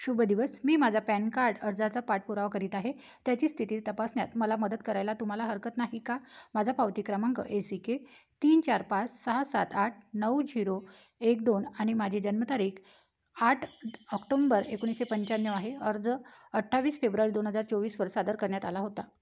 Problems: background sounds at intervals